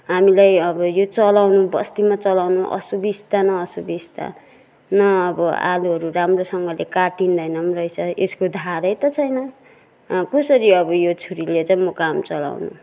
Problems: none marked